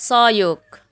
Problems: background sounds at intervals